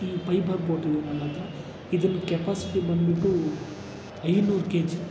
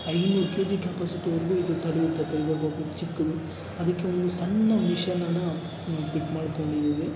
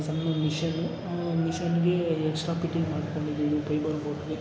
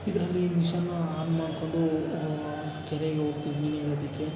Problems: background sounds at intervals